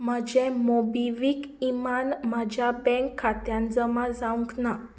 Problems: background sounds at intervals